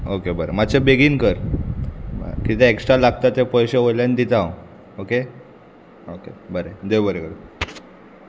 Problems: constant background noise